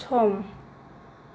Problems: none marked